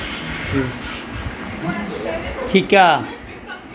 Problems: none marked